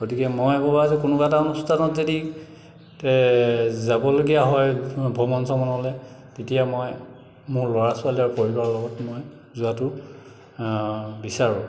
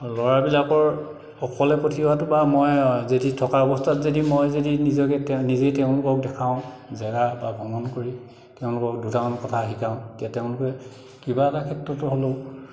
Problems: background sounds at intervals, echo